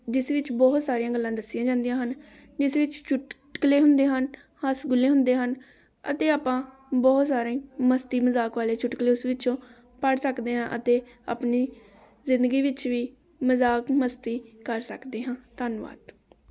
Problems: continuous background conversations